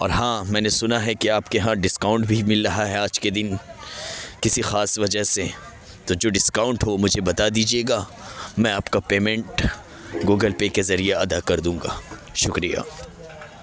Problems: constant background noise, background conversations at intervals